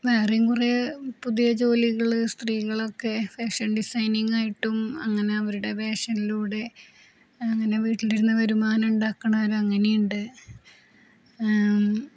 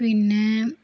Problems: constant background noise, low volume